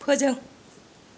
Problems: none marked